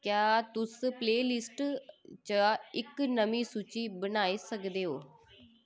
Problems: none marked